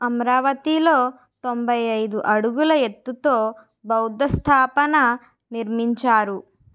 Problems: none marked